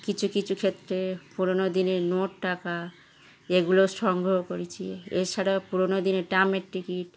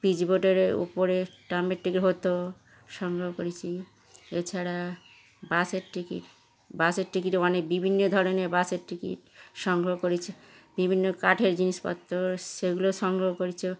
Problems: background sounds at intervals